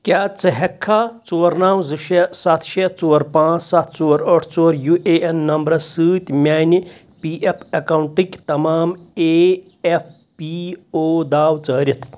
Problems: background sounds at intervals